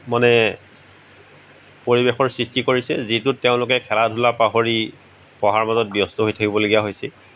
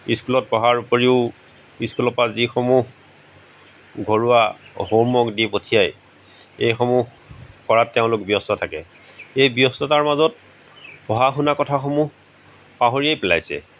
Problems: background sounds at intervals